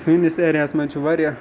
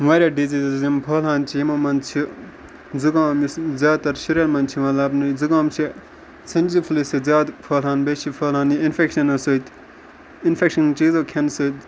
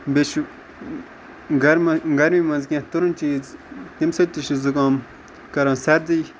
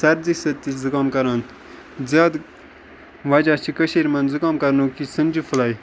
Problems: constant background noise, background conversations at intervals